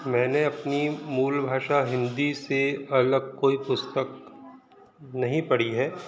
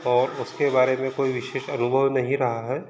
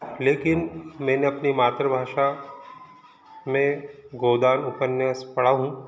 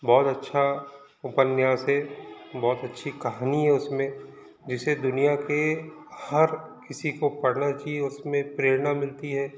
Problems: background sounds at intervals, background conversations at intervals